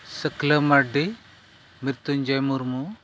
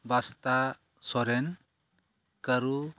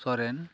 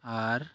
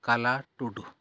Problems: background sounds at intervals